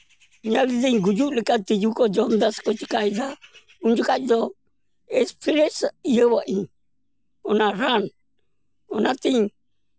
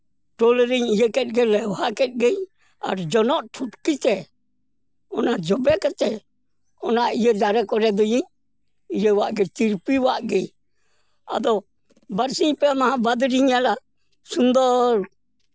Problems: background sounds at intervals